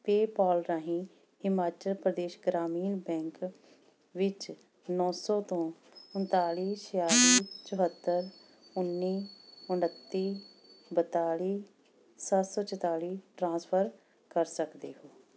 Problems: background sounds at intervals